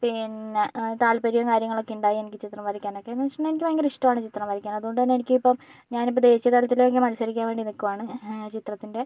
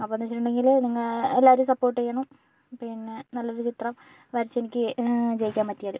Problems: none marked